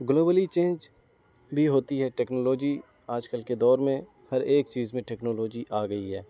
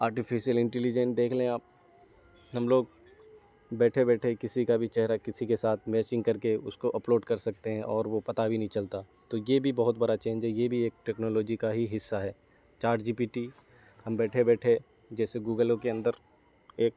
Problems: constant background noise